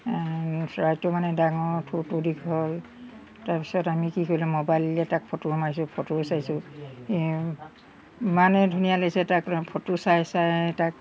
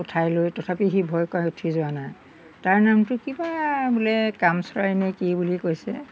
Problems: background sounds at intervals